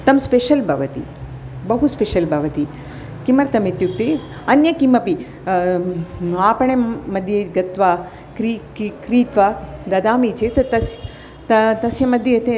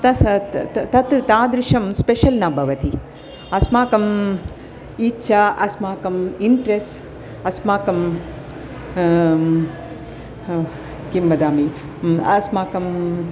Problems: constant background noise, continuous background conversations